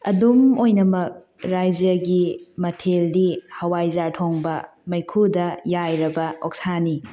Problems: background sounds at intervals